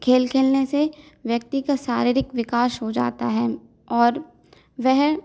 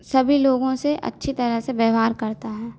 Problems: none marked